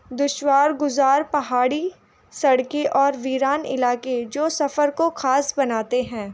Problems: none marked